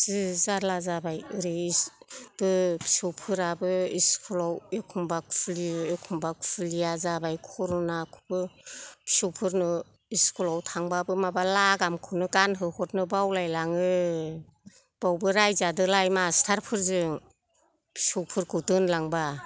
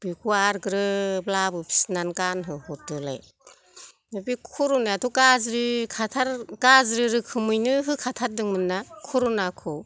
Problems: none marked